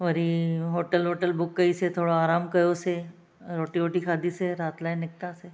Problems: none marked